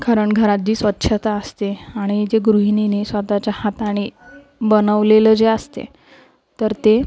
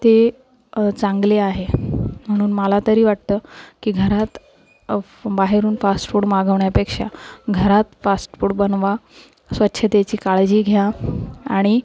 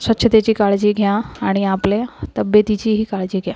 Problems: constant background noise, background conversations at intervals, low volume